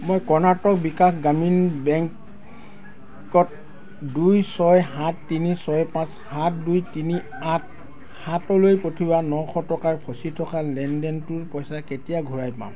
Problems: continuous background conversations